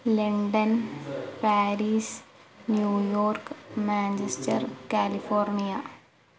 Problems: background sounds at intervals